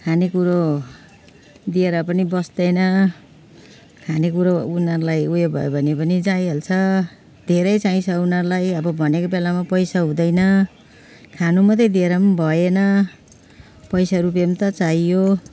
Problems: constant background noise